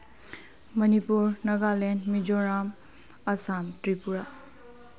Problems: low volume